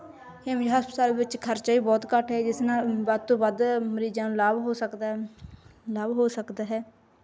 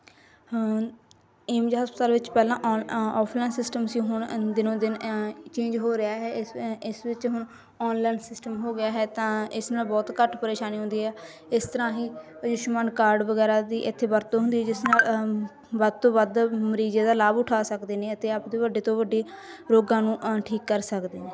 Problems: continuous background conversations